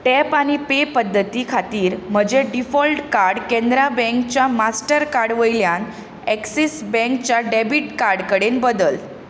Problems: constant background noise